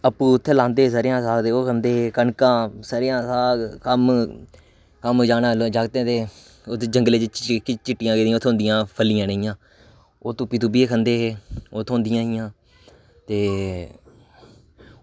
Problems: none marked